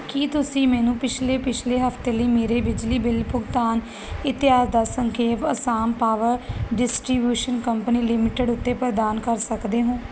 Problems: constant background noise